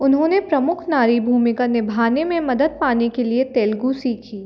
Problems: none marked